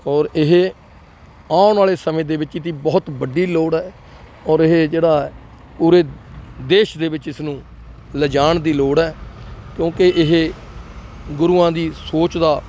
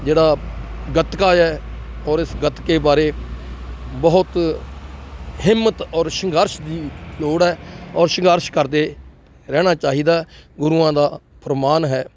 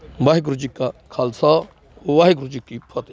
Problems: none marked